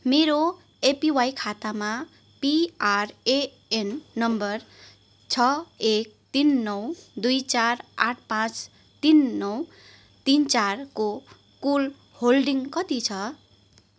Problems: none marked